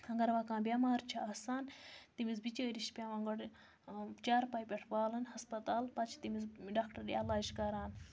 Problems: background sounds at intervals